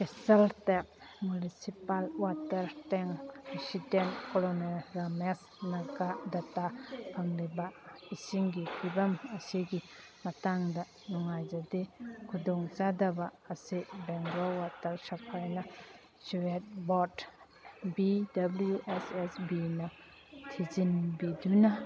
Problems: background sounds at intervals, background conversations at intervals